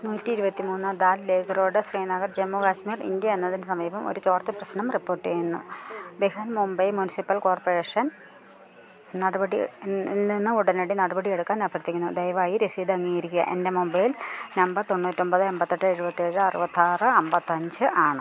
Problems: constant background noise